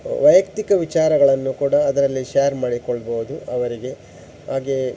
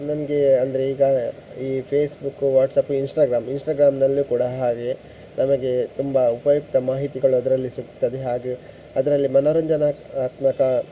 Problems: none marked